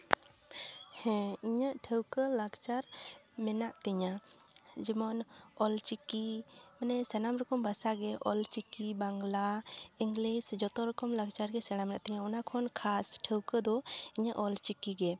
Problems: background sounds at intervals